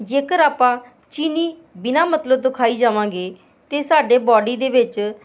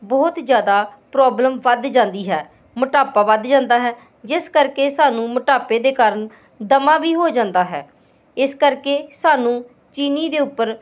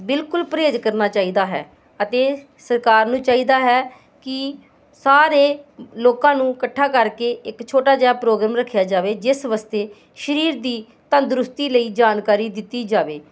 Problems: constant background noise